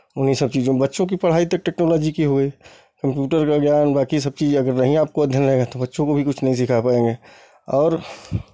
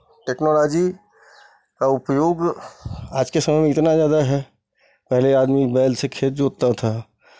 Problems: constant background noise